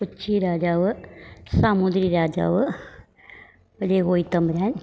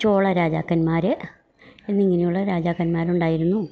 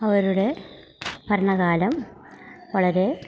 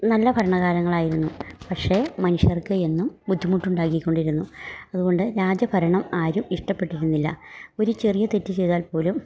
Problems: low volume